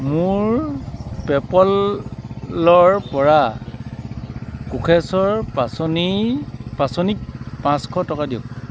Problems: background sounds at intervals